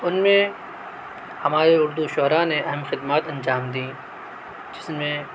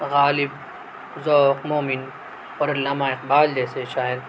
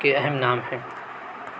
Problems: none marked